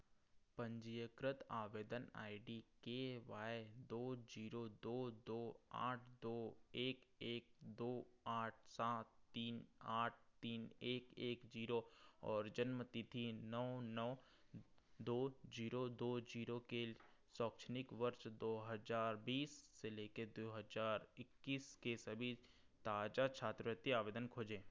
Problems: none marked